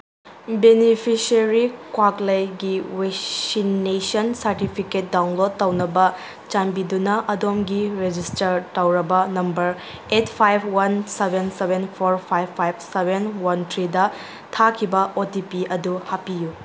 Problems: background sounds at intervals